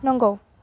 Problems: none marked